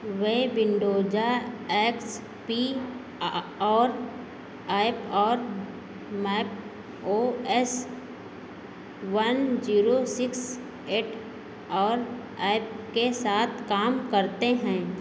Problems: none marked